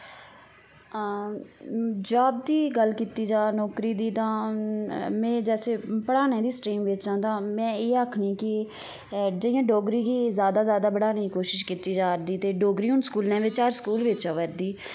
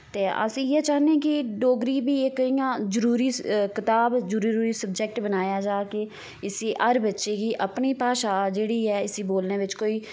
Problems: constant background noise